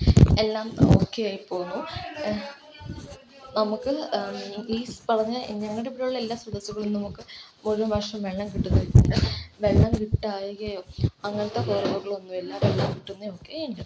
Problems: constant background noise